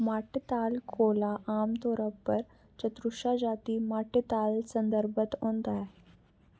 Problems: none marked